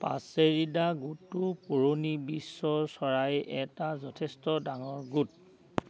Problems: none marked